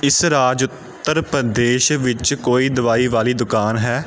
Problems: constant background noise